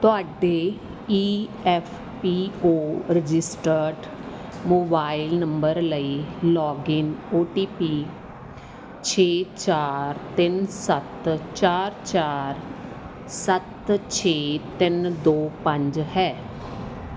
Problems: background sounds at intervals